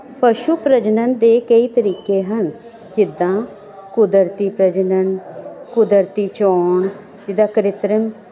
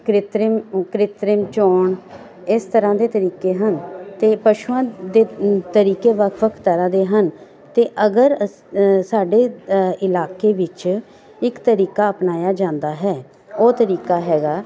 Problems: none marked